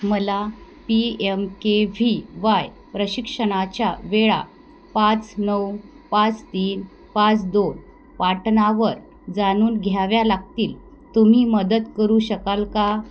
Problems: background sounds at intervals